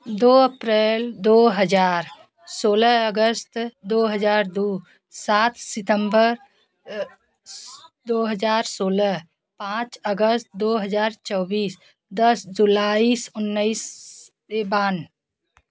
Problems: none marked